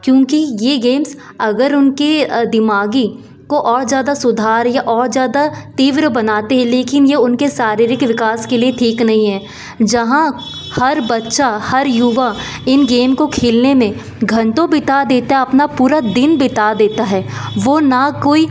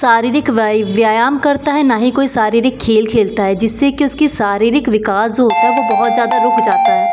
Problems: none marked